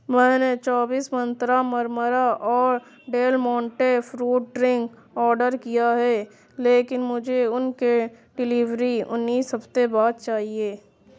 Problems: constant background noise